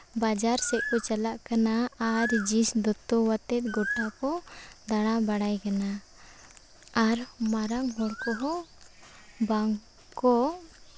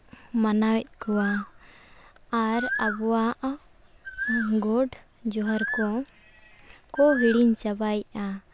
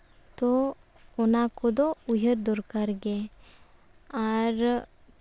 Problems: background sounds at intervals